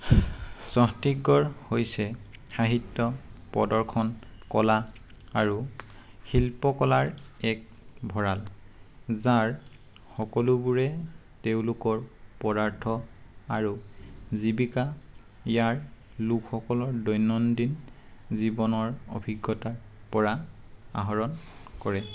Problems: none marked